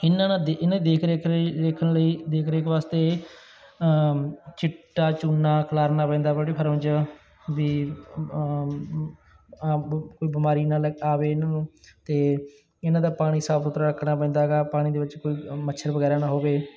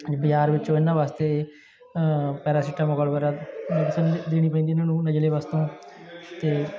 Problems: background sounds at intervals, background conversations at intervals